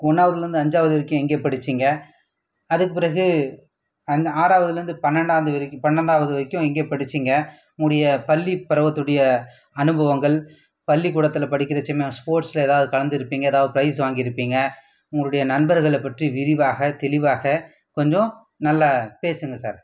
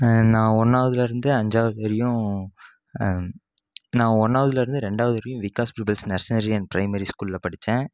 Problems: background sounds at intervals